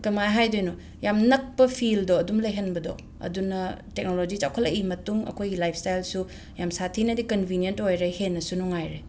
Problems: background sounds at intervals